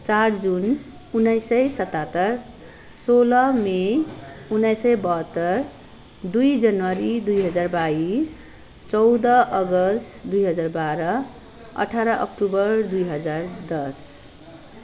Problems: none marked